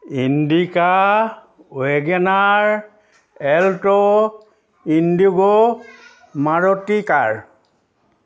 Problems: constant background noise